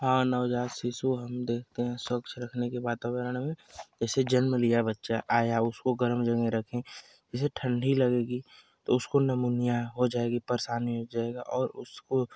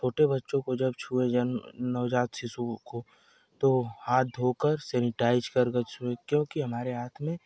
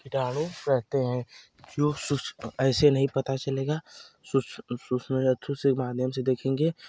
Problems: constant background noise